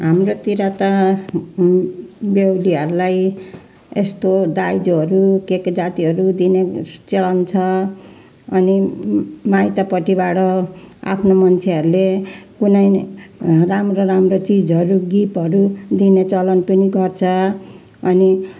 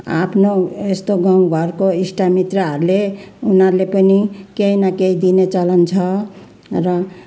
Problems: constant background noise, continuous background conversations